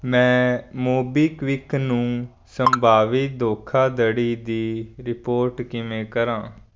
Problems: background sounds at intervals